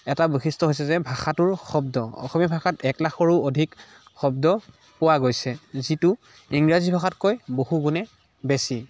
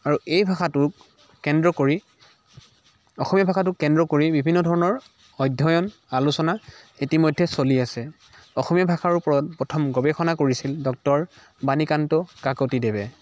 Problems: none marked